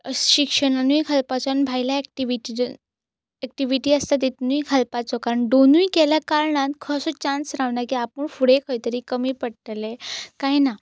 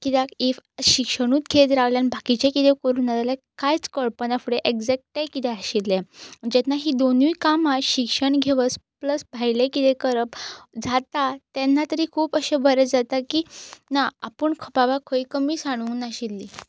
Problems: none marked